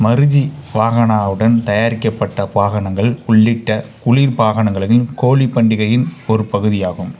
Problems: constant background noise